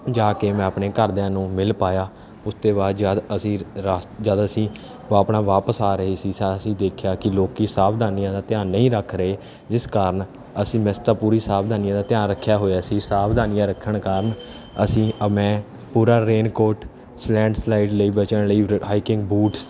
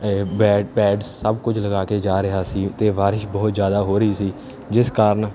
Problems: constant background noise